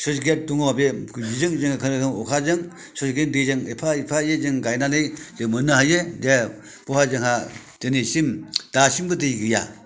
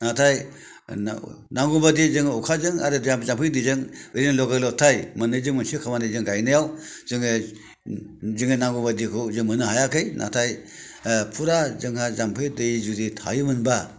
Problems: none marked